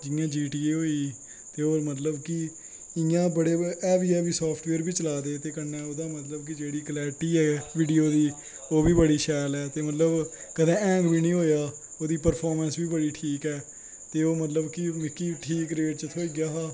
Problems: constant background noise